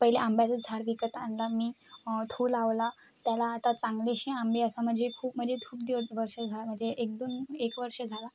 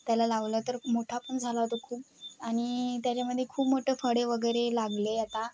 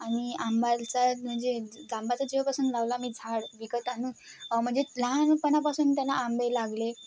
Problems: none marked